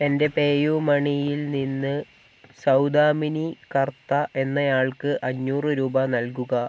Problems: none marked